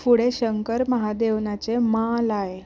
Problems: background sounds at intervals